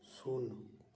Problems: echo